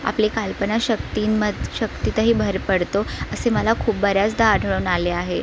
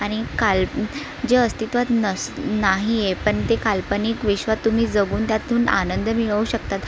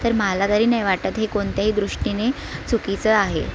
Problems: constant background noise, continuous background conversations